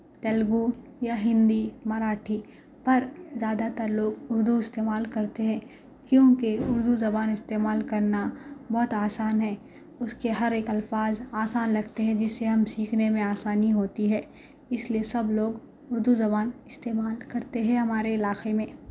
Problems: none marked